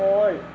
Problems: constant background noise, low volume